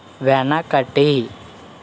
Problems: constant background noise